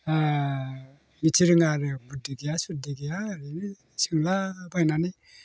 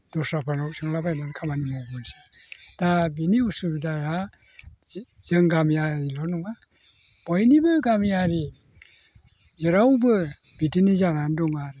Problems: constant background noise